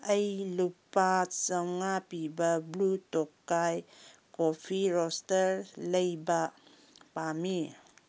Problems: none marked